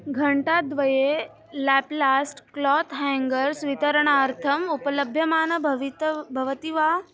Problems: background conversations at intervals